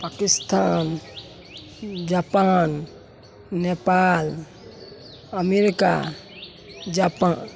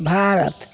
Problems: constant background noise